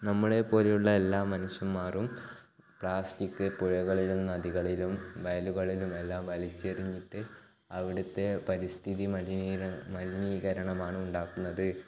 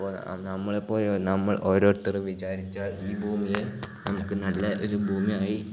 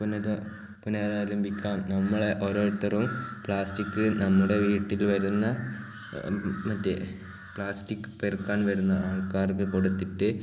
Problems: background sounds at intervals